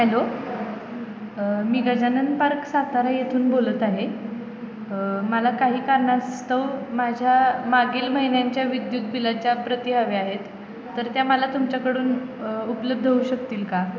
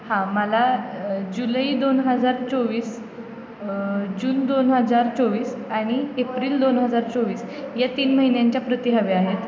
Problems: constant background noise